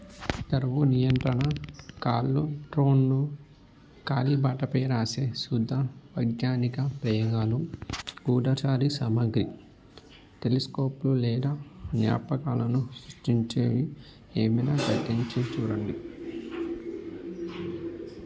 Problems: constant background noise